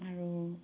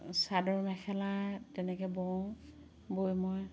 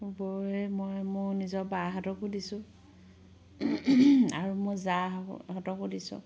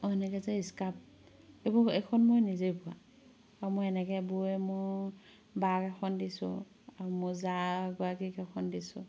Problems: background sounds at intervals